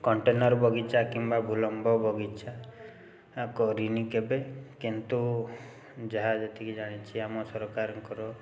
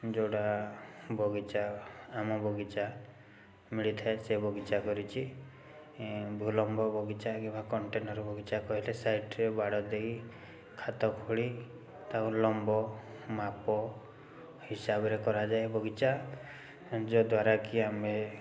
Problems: constant background noise